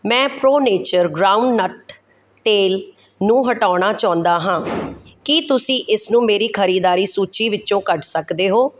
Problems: none marked